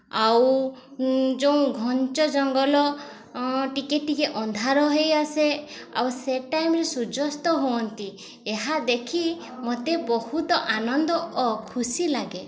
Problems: constant background noise, continuous background conversations